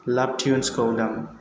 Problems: constant background noise